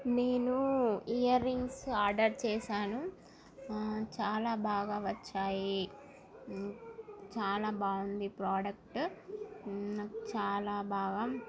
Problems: constant background noise, continuous background conversations